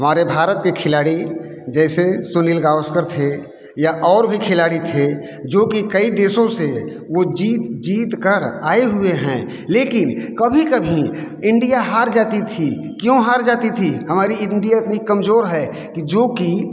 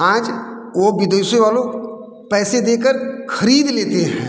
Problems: background sounds at intervals, background conversations at intervals